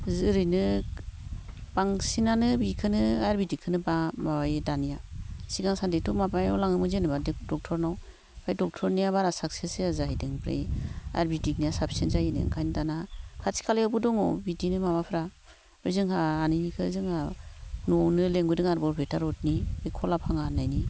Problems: low volume